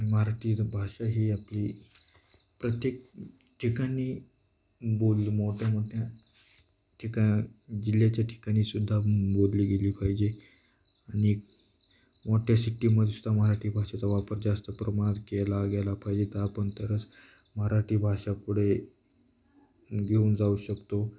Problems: background sounds at intervals, background conversations at intervals